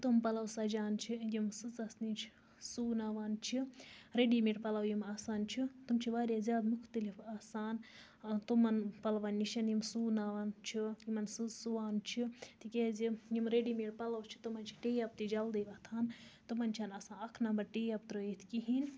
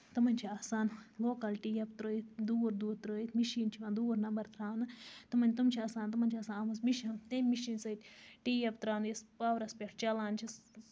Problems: none marked